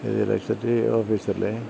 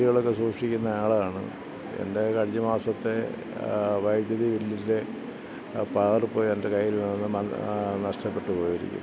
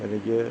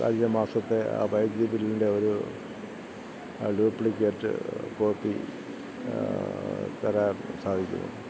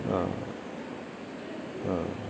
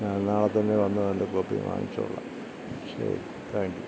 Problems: low volume